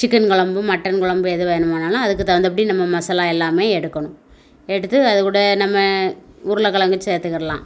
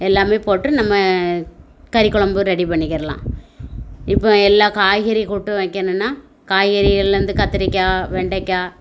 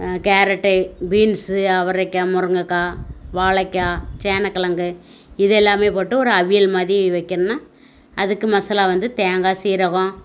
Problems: none marked